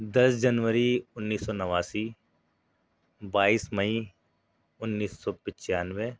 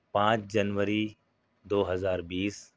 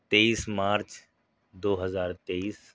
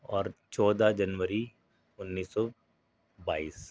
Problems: none marked